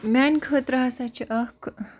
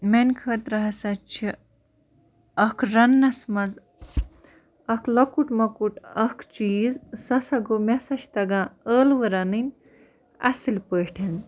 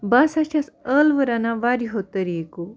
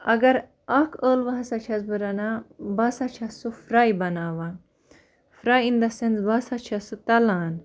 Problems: none marked